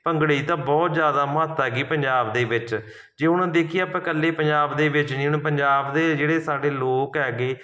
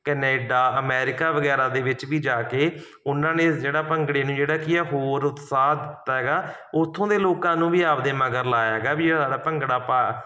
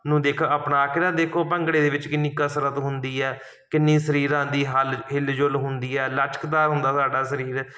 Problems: none marked